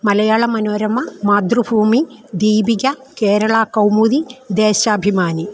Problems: constant background noise